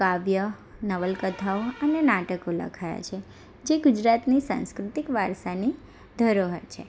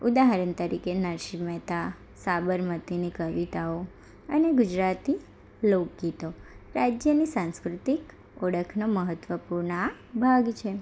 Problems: none marked